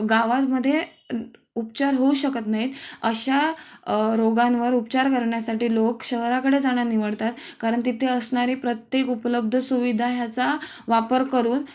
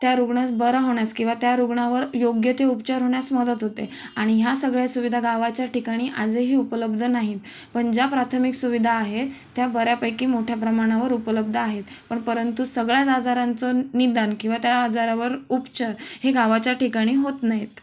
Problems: none marked